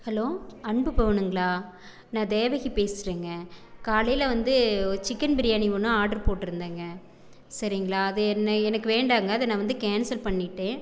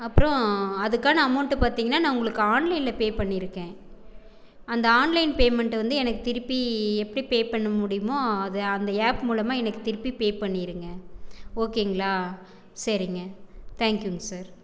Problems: background conversations at intervals